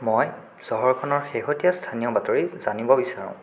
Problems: constant background noise